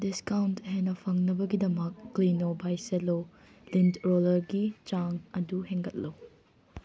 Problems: none marked